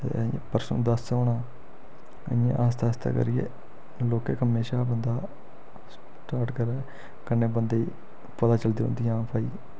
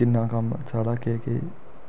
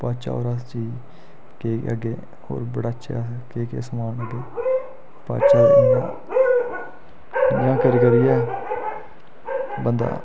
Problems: constant background noise